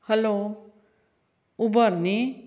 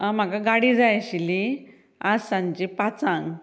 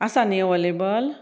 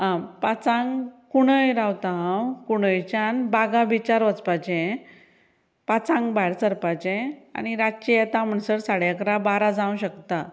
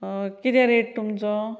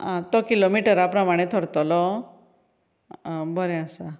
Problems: none marked